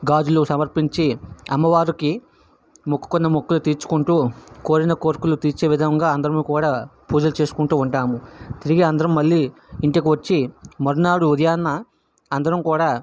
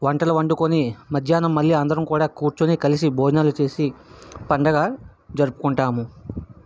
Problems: background sounds at intervals